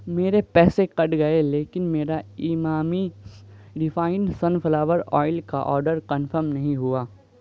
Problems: background sounds at intervals